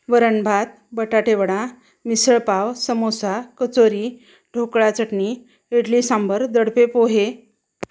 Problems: background sounds at intervals